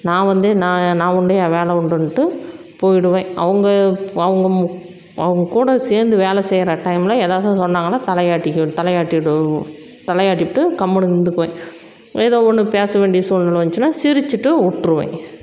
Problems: constant background noise